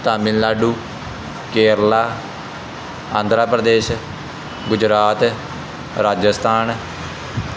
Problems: constant background noise